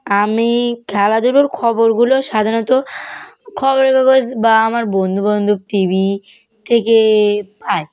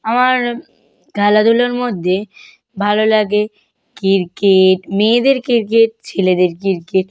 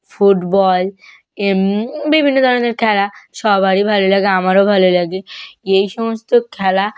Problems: background conversations at intervals